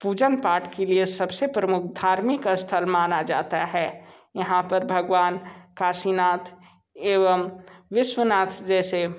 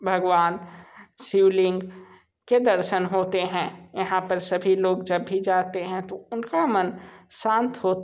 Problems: none marked